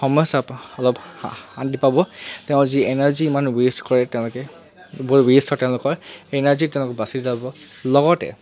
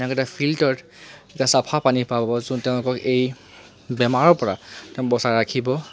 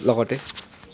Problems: constant background noise